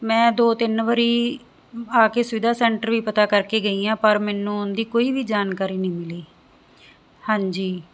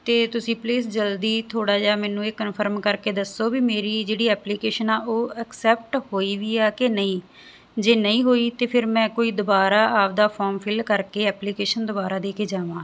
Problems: constant background noise